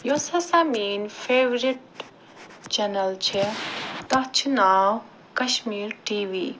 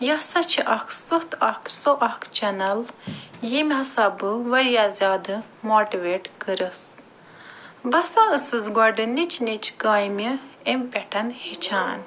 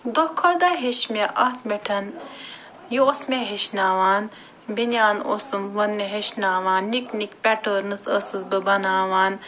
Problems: background sounds at intervals